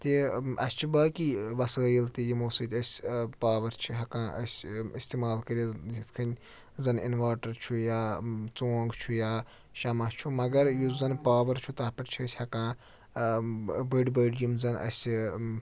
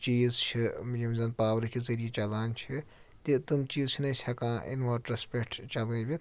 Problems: none marked